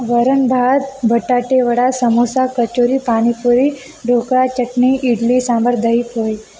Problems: constant background noise